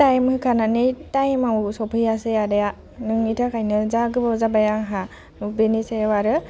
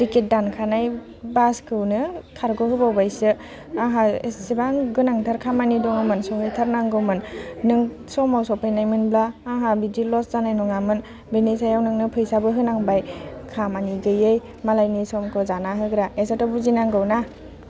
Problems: constant background noise